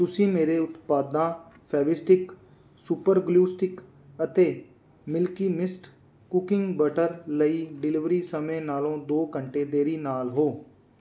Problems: background sounds at intervals